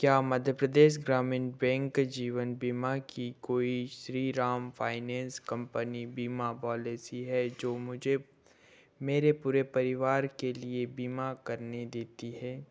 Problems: none marked